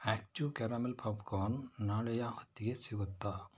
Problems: low volume